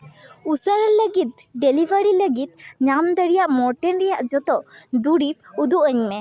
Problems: none marked